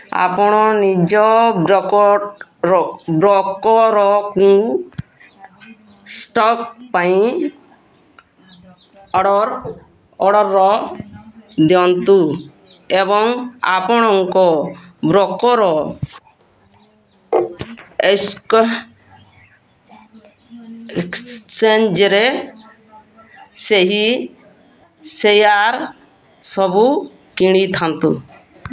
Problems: constant background noise